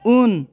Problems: constant background noise